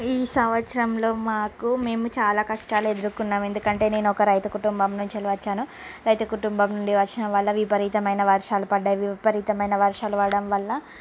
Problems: constant background noise